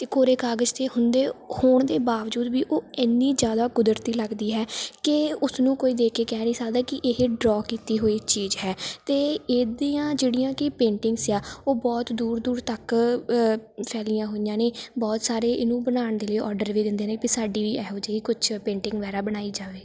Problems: background sounds at intervals